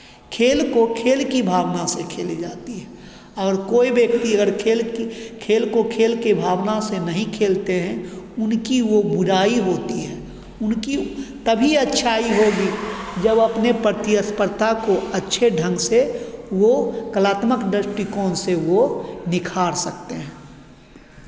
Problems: none marked